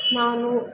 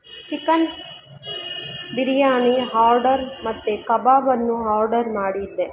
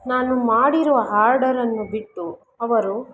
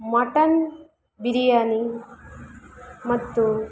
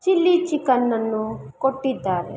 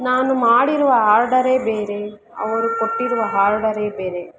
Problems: none marked